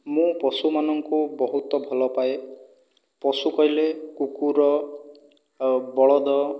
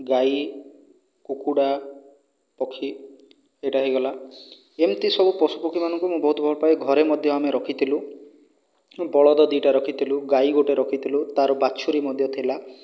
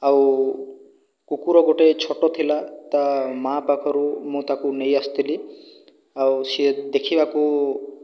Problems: none marked